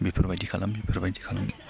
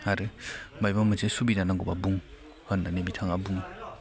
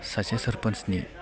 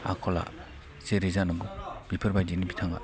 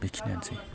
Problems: none marked